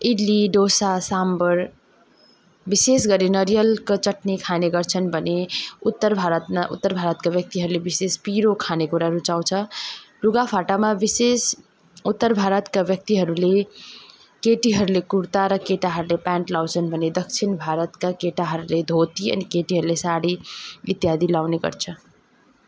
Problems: background conversations at intervals